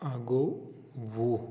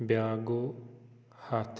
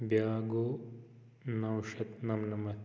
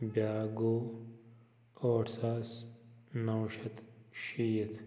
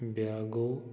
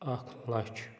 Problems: constant background noise, echo